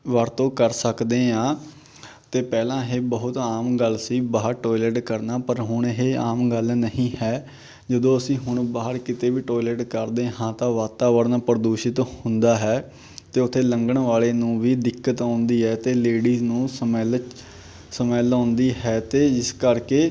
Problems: none marked